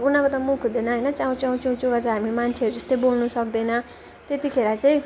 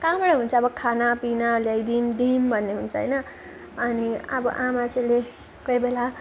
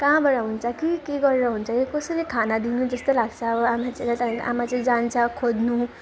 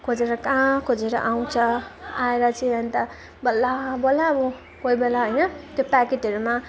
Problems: constant background noise, continuous background conversations